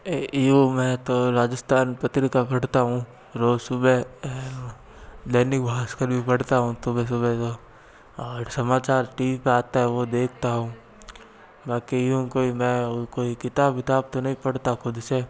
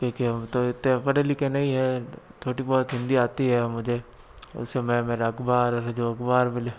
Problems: constant background noise